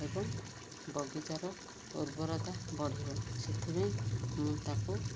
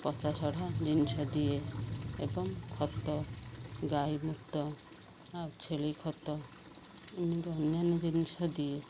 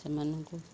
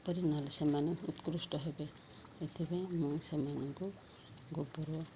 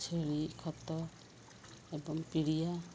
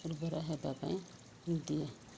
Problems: constant background noise